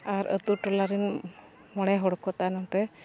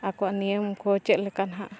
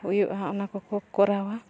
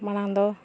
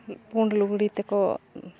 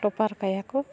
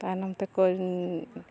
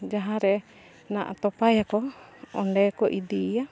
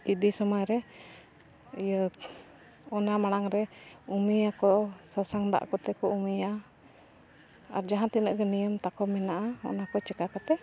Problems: constant background noise, background conversations at intervals